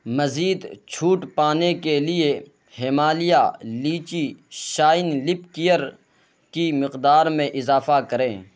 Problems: constant background noise